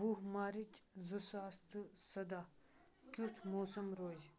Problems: constant background noise, low volume